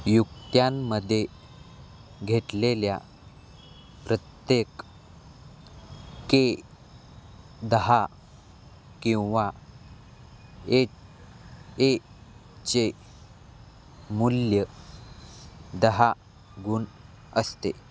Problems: constant background noise